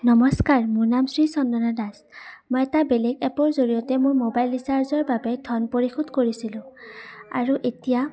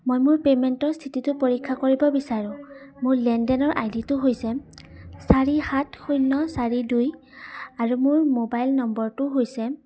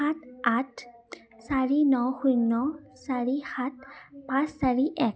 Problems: background sounds at intervals, background conversations at intervals